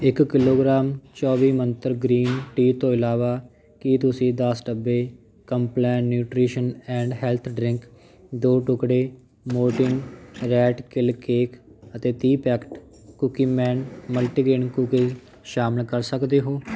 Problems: constant background noise